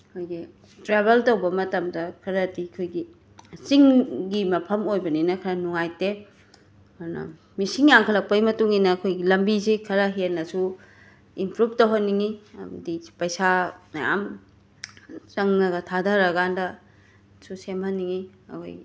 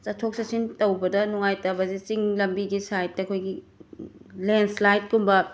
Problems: background sounds at intervals